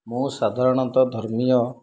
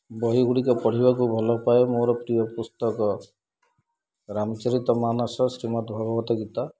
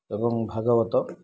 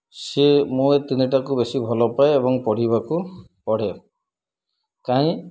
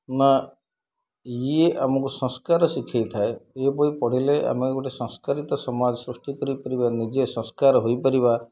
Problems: low volume